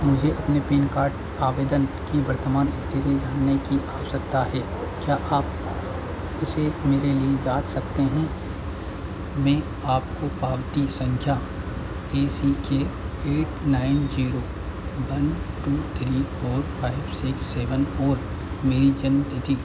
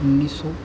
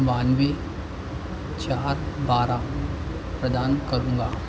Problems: constant background noise